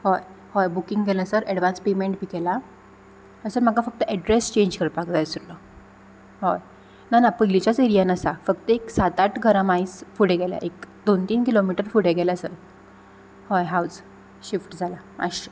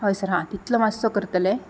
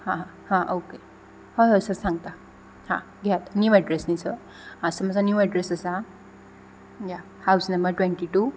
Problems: none marked